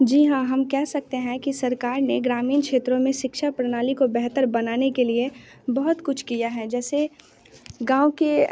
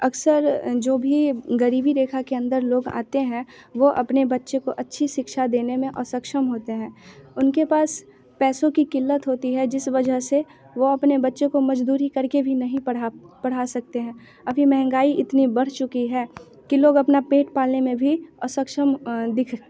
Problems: constant background noise, continuous background conversations